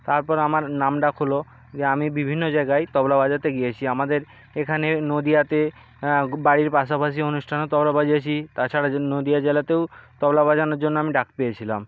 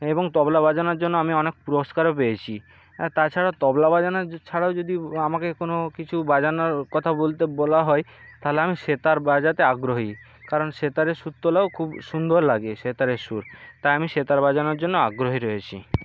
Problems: background sounds at intervals